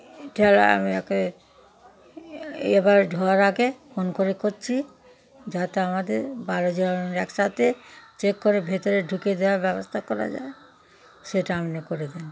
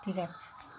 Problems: constant background noise